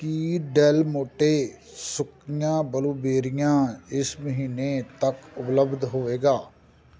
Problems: background sounds at intervals